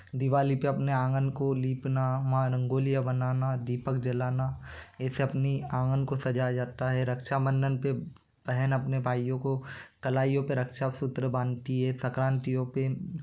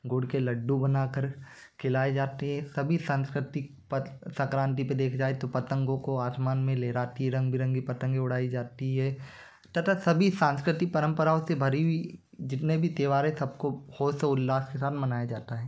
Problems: constant background noise